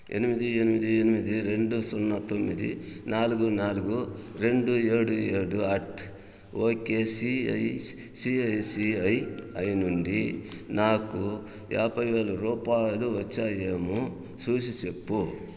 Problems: none marked